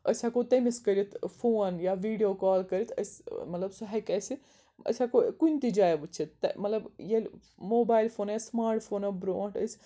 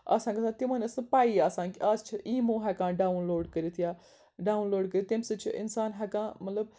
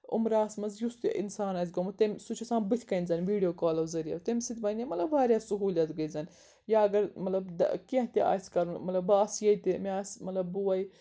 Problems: background sounds at intervals